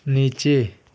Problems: none marked